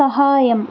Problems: none marked